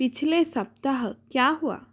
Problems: constant background noise